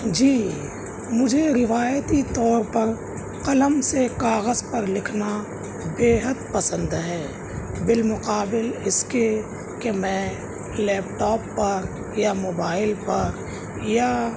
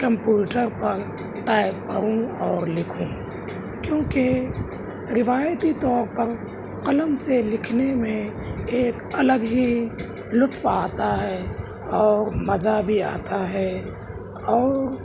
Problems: none marked